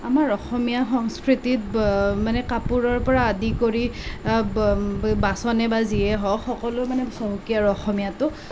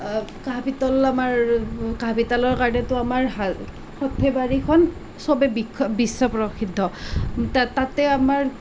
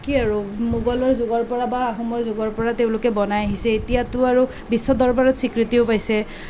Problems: constant background noise